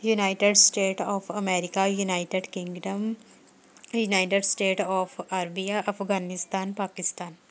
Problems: background conversations at intervals